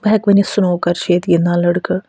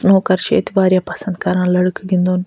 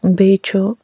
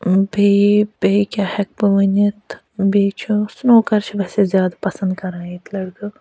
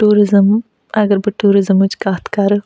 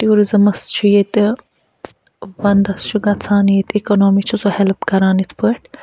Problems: none marked